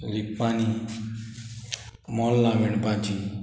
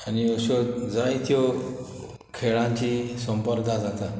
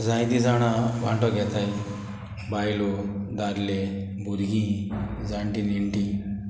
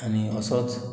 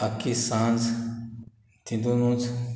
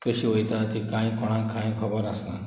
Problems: none marked